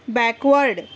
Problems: constant background noise